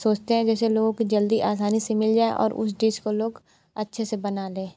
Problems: constant background noise